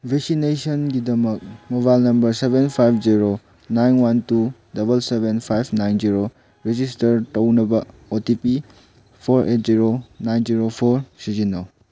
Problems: none marked